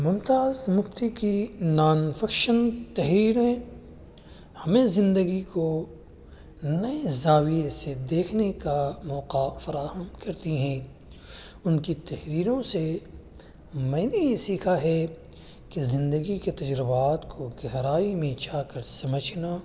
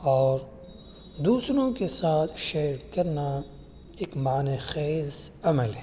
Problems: constant background noise